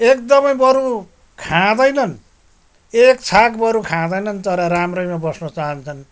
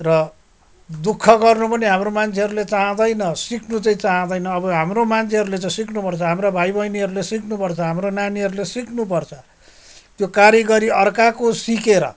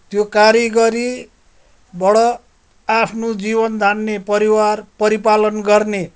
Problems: background sounds at intervals